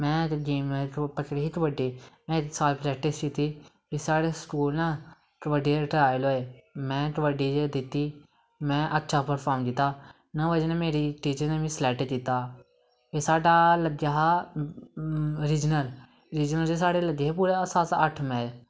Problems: background sounds at intervals